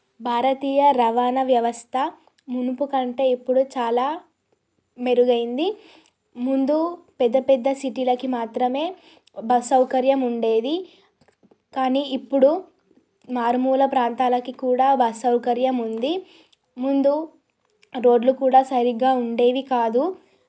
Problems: none marked